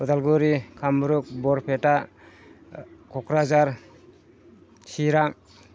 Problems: none marked